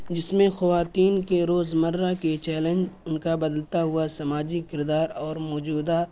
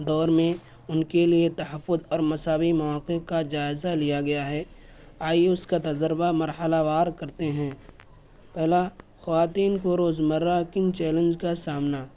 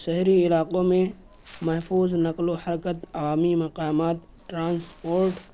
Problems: constant background noise